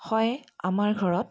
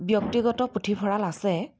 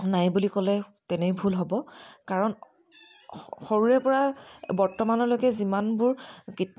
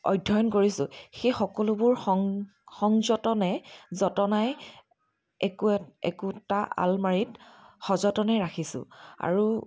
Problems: constant background noise, continuous background conversations